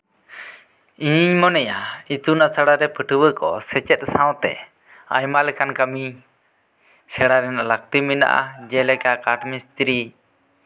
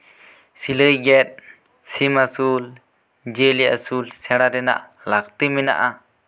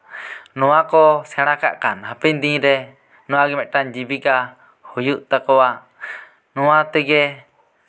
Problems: background sounds at intervals